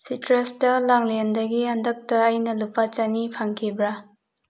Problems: none marked